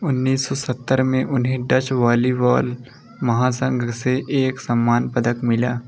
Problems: none marked